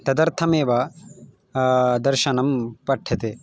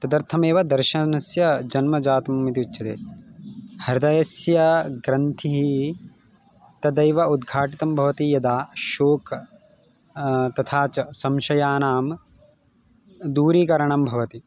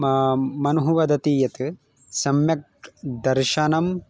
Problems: none marked